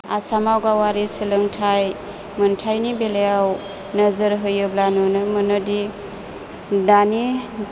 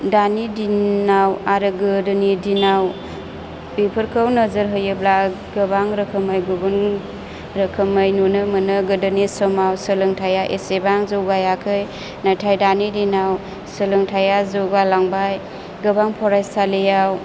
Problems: low volume